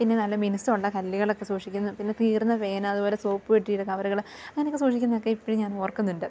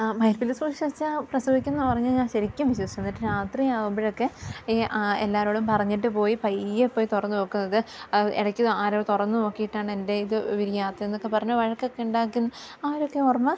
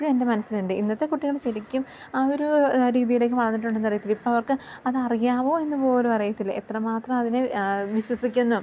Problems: low volume